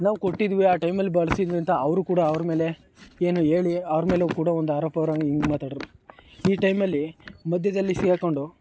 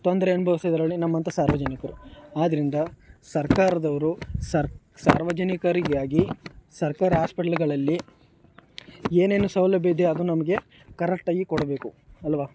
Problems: background sounds at intervals